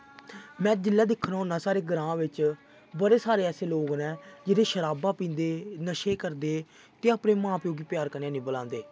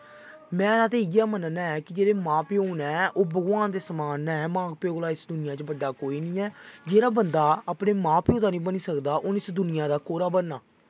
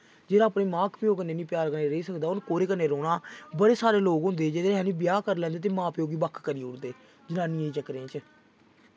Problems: background sounds at intervals